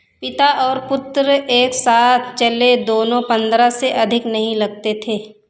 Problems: echo